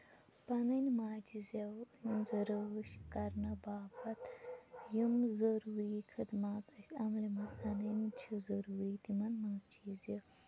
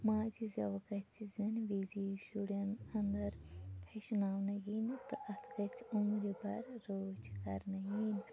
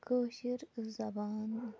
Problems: low volume